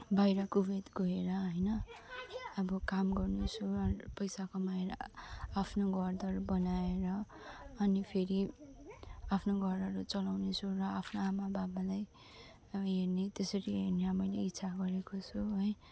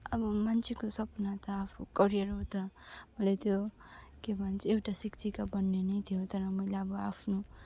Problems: low volume